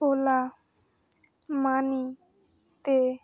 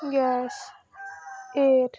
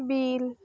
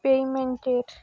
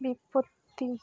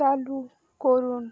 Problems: constant background noise